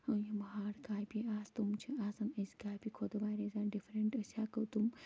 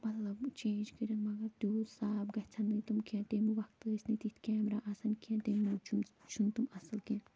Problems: constant background noise